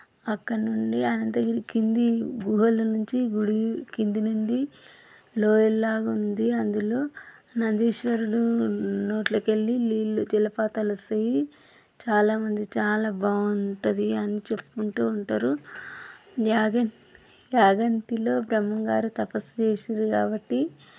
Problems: background sounds at intervals